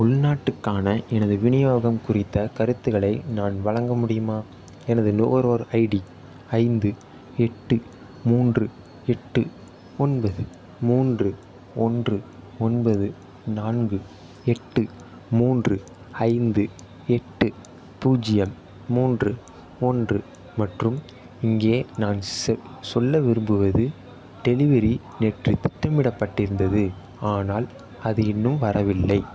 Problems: background sounds at intervals